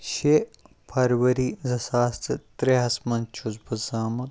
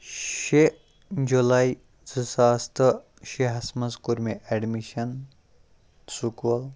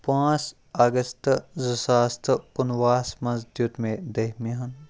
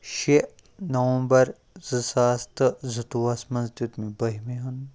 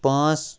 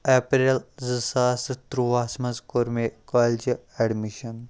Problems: none marked